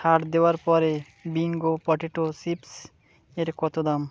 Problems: constant background noise